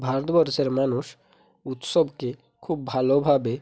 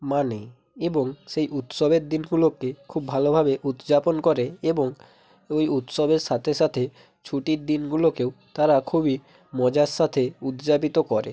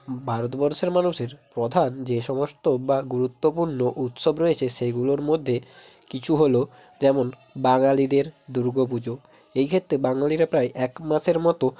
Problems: none marked